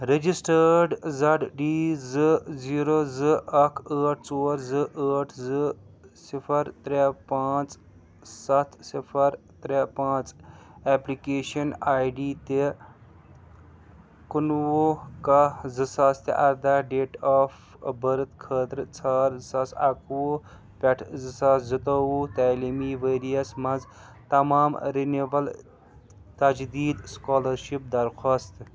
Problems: background sounds at intervals, background conversations at intervals